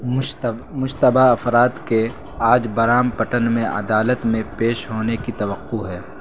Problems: constant background noise